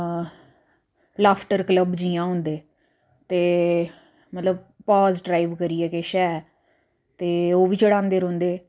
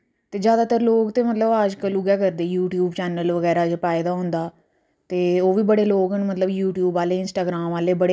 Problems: low volume